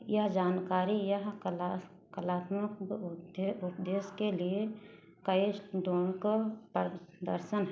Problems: background sounds at intervals